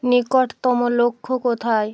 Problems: none marked